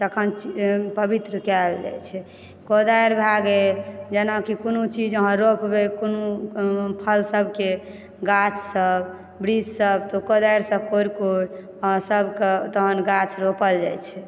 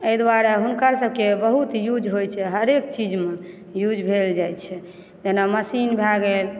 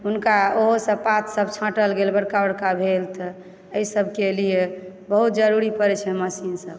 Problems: background sounds at intervals